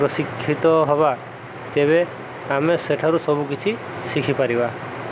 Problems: constant background noise, background conversations at intervals